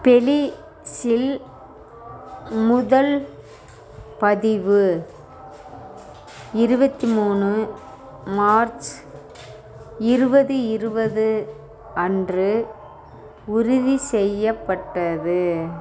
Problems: none marked